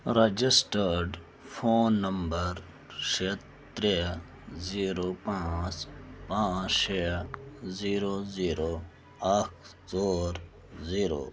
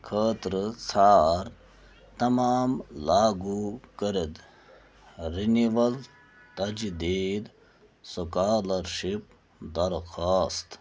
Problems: none marked